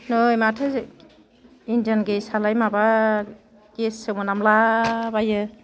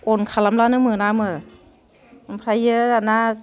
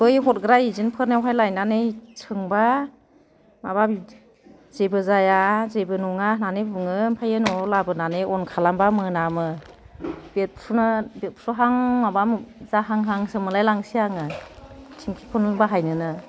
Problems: none marked